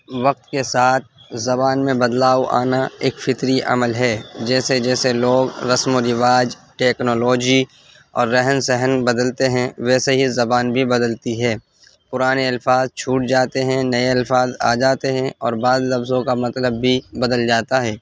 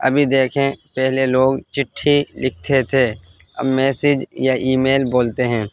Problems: constant background noise